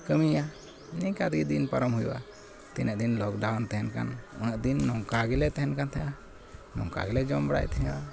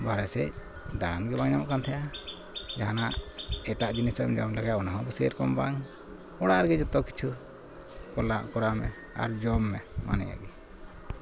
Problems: constant background noise